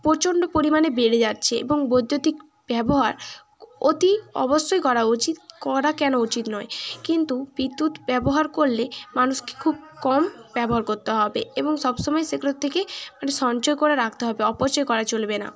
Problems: continuous background conversations